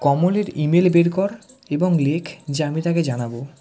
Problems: background sounds at intervals, background conversations at intervals